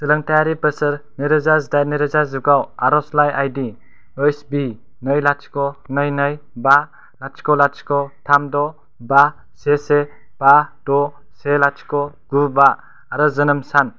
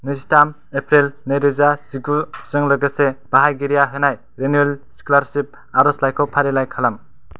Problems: none marked